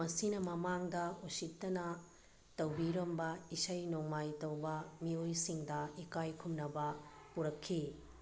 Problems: background sounds at intervals